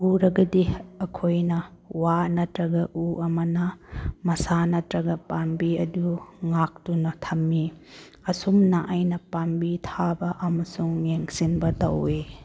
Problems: none marked